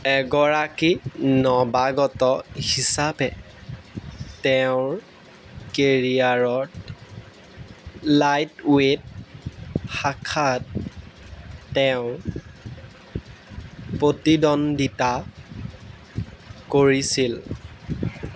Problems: background sounds at intervals